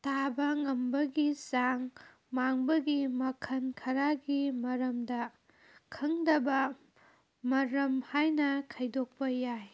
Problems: background sounds at intervals